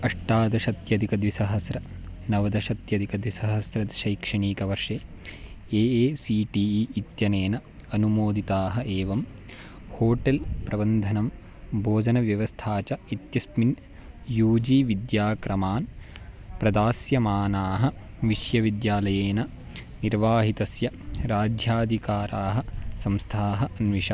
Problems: none marked